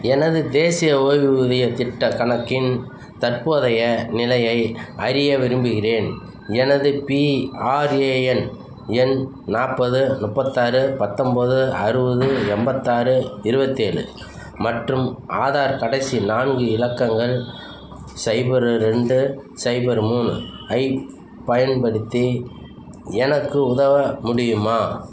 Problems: background sounds at intervals, background conversations at intervals